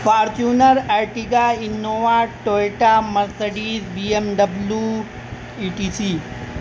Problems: constant background noise